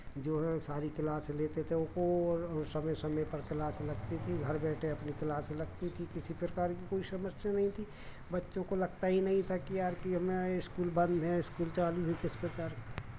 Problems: none marked